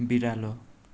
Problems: none marked